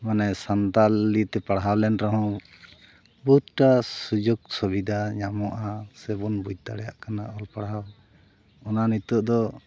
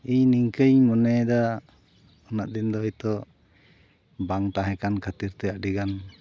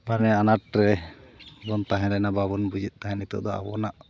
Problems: background sounds at intervals